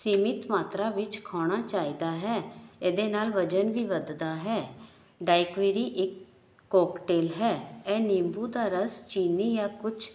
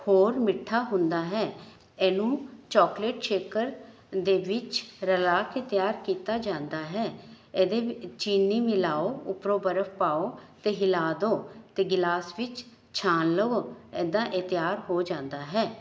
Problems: background sounds at intervals